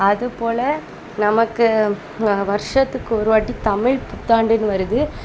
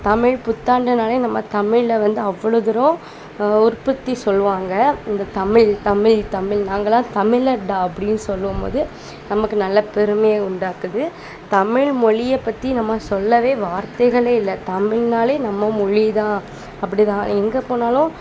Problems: constant background noise